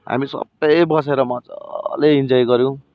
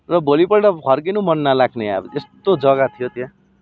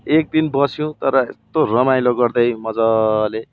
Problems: constant background noise